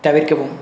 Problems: constant background noise